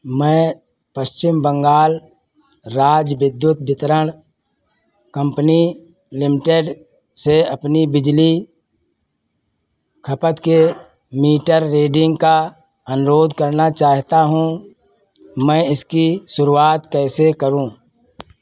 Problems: constant background noise